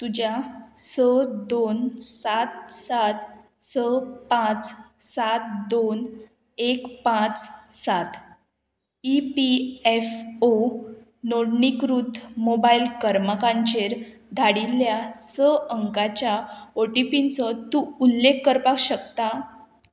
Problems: constant background noise